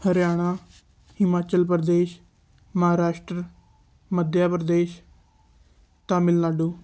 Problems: none marked